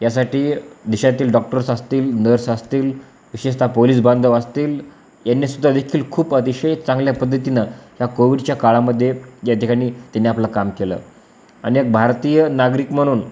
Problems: constant background noise